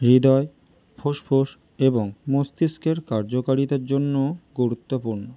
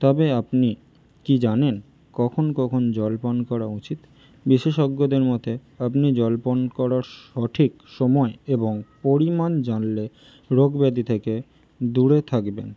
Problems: none marked